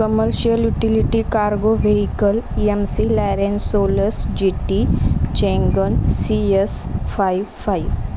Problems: constant background noise, continuous background conversations